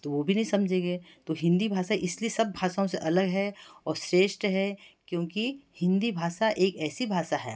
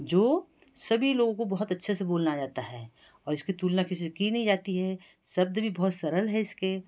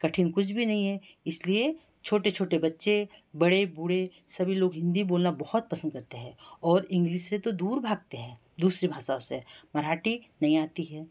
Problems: none marked